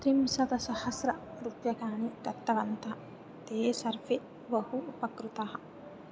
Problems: low volume